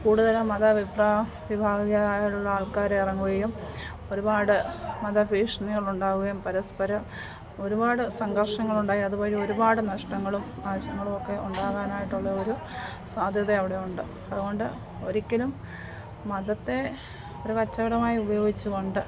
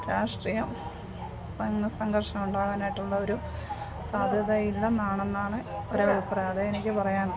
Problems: constant background noise, background conversations at intervals, low volume